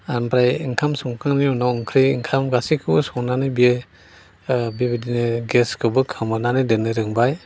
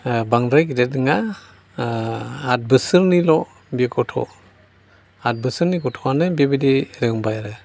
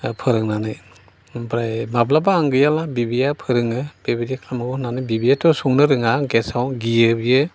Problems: constant background noise